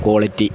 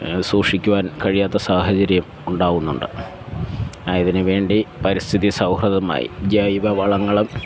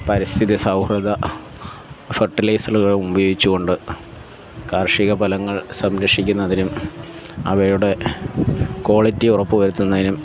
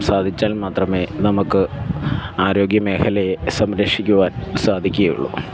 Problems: background sounds at intervals